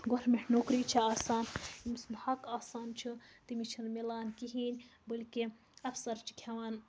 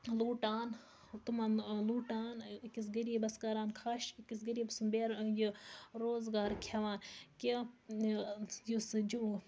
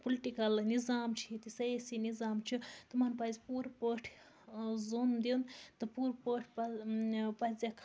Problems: background sounds at intervals, low volume